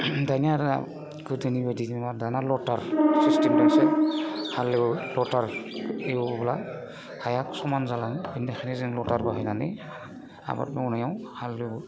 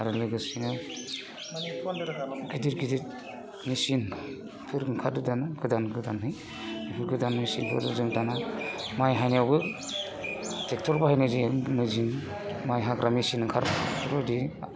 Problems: constant background noise